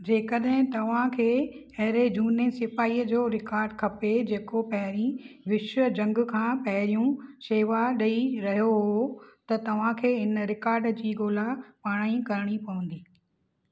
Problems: none marked